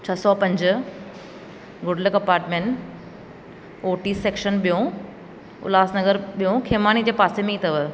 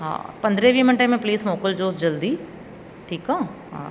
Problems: constant background noise, echo